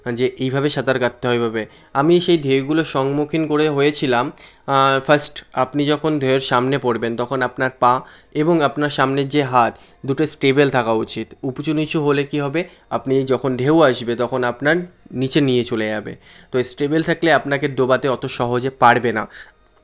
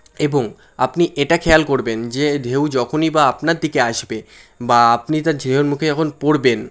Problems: constant background noise